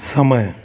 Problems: constant background noise